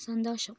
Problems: low volume